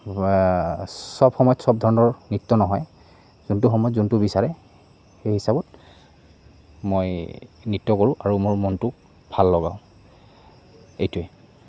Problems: none marked